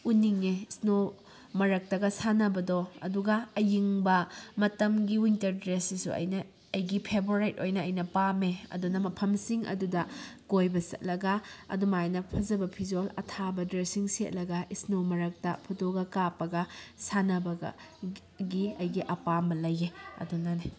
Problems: background conversations at intervals